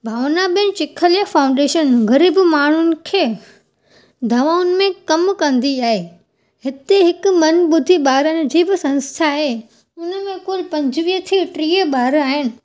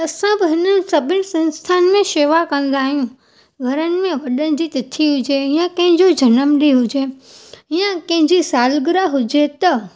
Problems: none marked